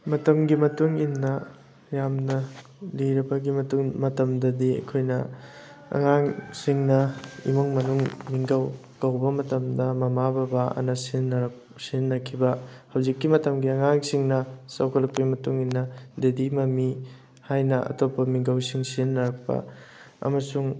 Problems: background sounds at intervals